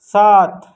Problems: none marked